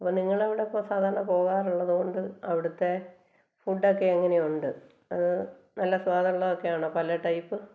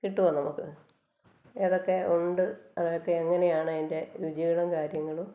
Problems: low volume